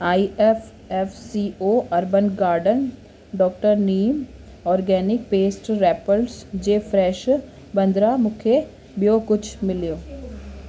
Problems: constant background noise, echo